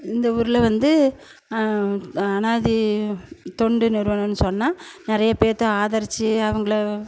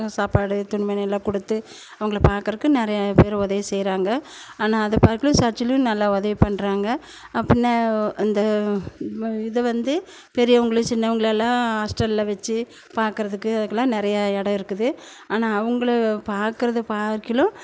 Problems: none marked